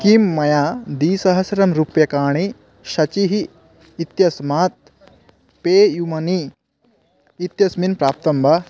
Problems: none marked